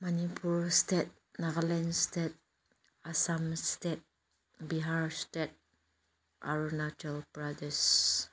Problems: low volume